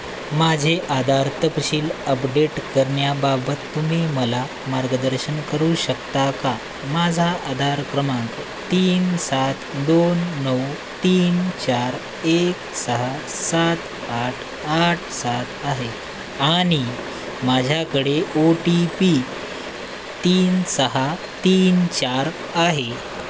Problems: constant background noise